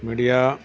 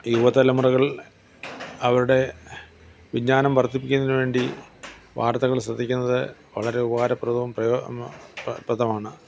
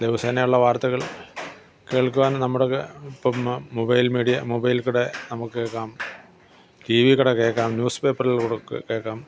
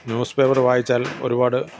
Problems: background sounds at intervals